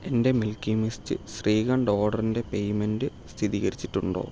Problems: low volume